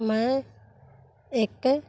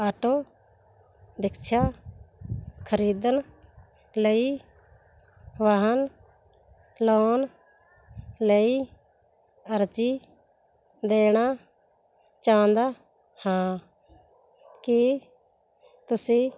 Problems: background sounds at intervals